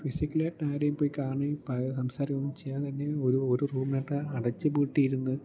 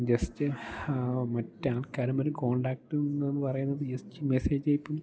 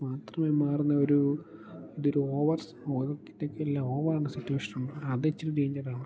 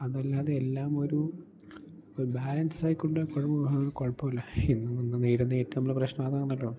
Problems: low volume